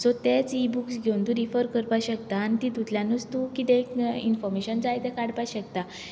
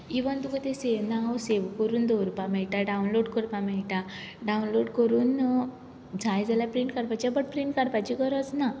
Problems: none marked